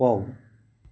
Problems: background sounds at intervals